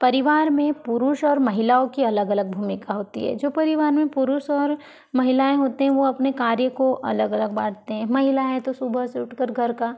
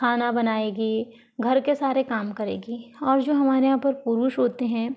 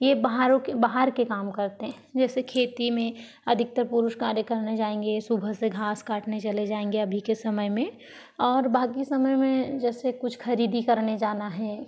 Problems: none marked